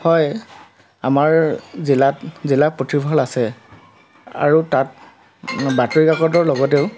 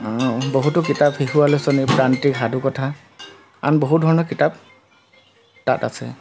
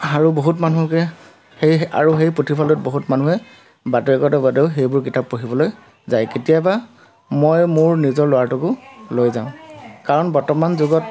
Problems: constant background noise